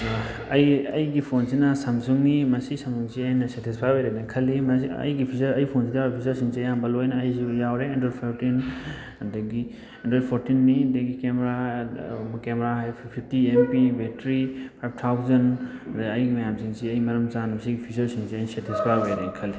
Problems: constant background noise